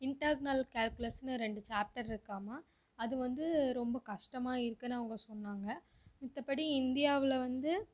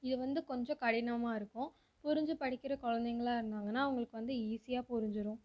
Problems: low volume